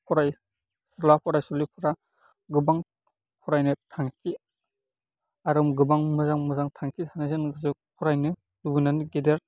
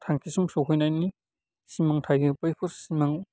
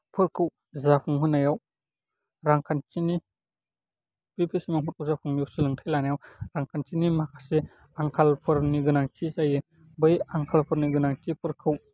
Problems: low volume